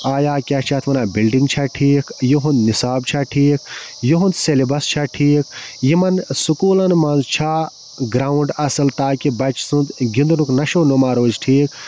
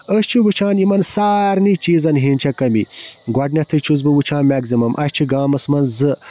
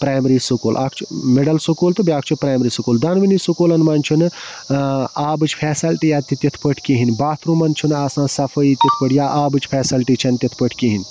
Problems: constant background noise